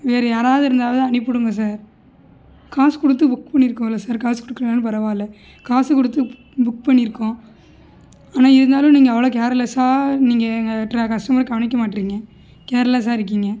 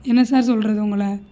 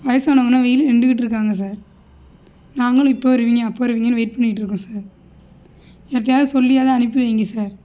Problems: none marked